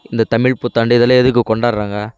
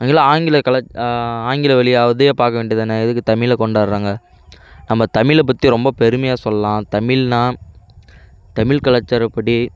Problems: background conversations at intervals